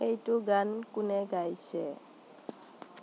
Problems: constant background noise